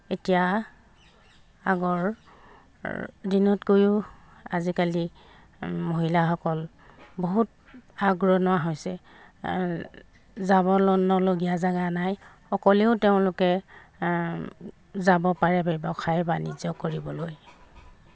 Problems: background sounds at intervals